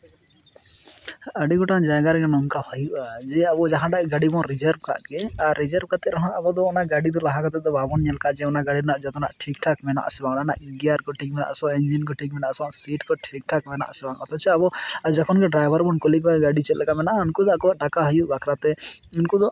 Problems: constant background noise